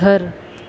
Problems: none marked